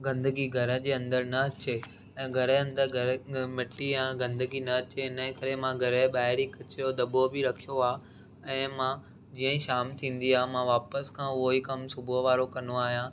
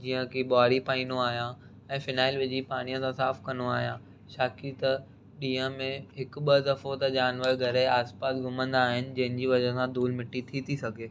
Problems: none marked